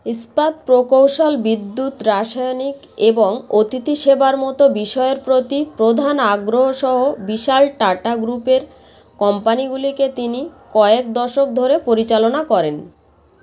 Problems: constant background noise, background conversations at intervals